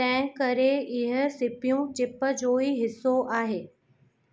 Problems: constant background noise, echo